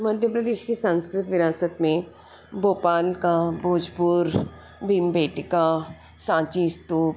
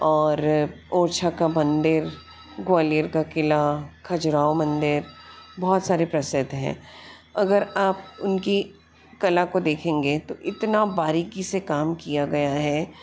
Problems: constant background noise